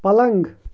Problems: constant background noise